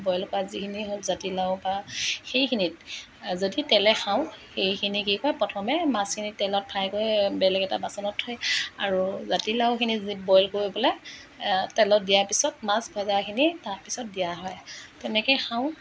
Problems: none marked